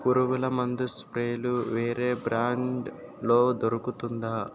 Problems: constant background noise